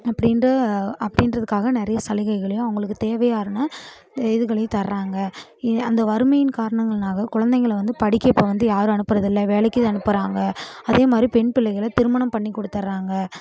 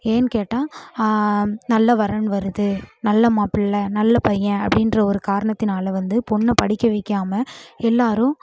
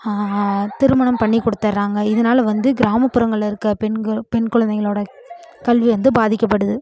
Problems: none marked